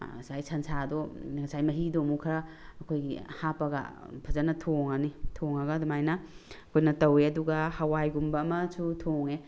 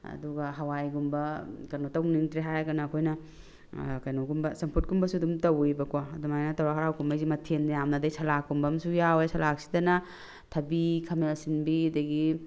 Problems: none marked